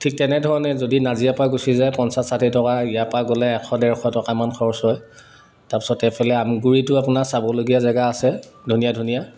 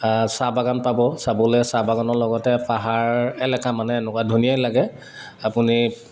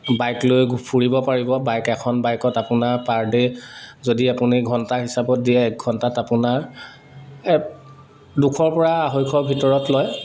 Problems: none marked